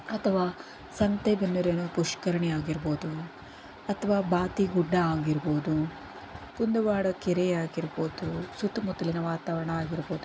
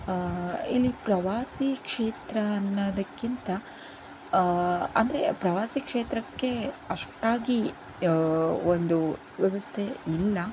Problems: none marked